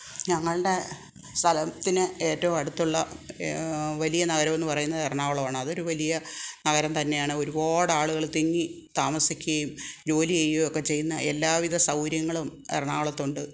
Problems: none marked